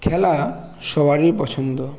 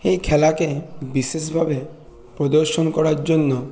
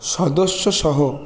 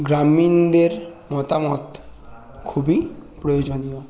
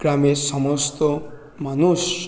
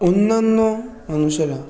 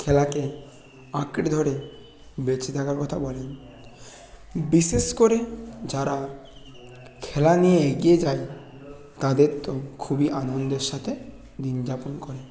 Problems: none marked